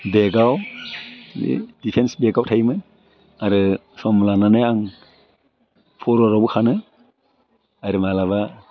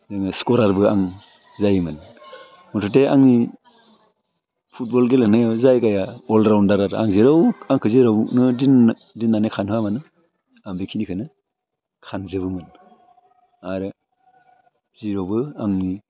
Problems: none marked